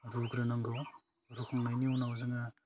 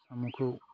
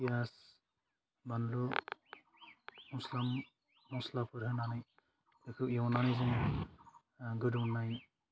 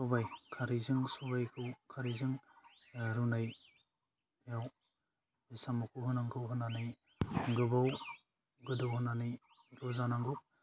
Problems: none marked